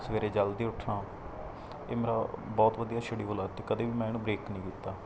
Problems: none marked